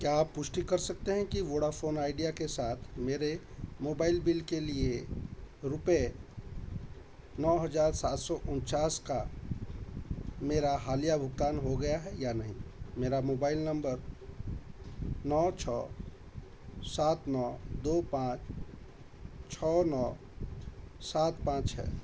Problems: background sounds at intervals